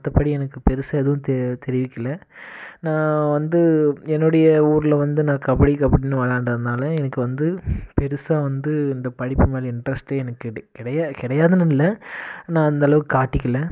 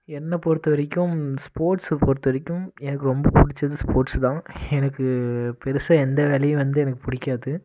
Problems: none marked